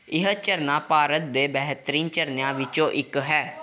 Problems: background conversations at intervals